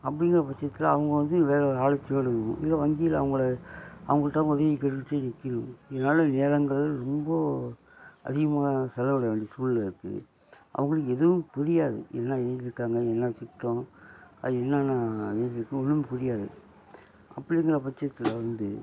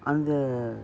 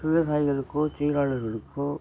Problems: constant background noise